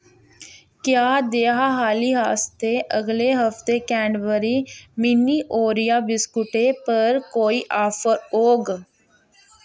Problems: constant background noise